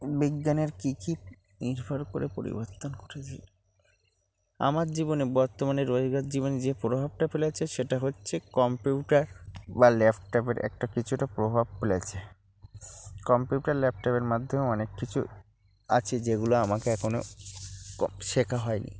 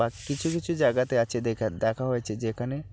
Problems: constant background noise, low volume